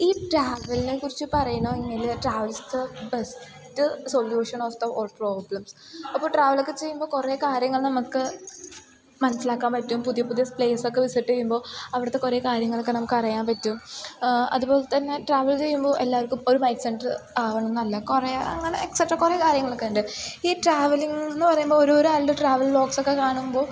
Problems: background sounds at intervals, low volume